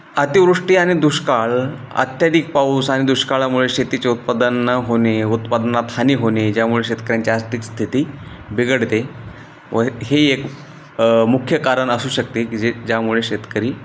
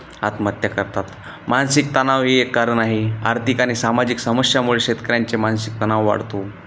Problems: none marked